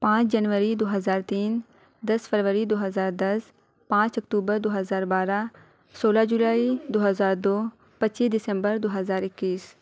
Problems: none marked